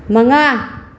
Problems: none marked